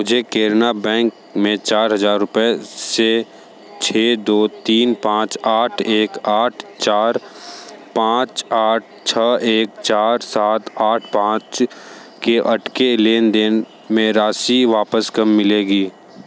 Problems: constant background noise, background conversations at intervals